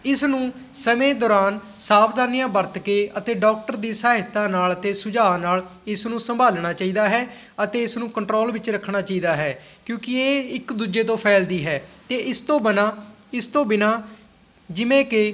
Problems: background sounds at intervals